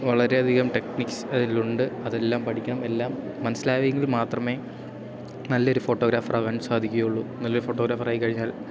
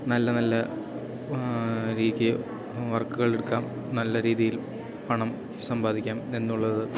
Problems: background sounds at intervals